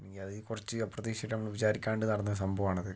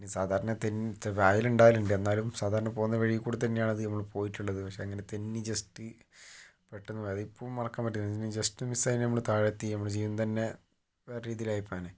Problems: low volume